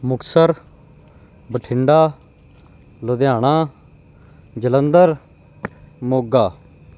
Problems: background sounds at intervals